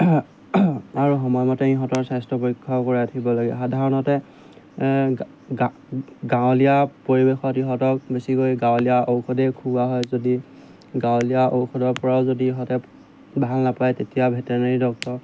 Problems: background sounds at intervals